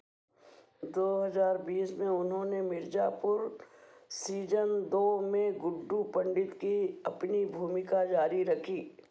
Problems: none marked